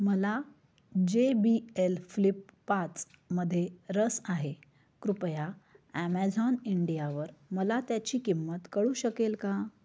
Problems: none marked